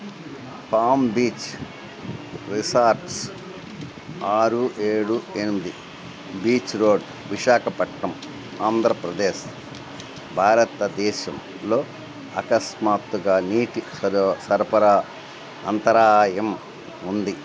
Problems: constant background noise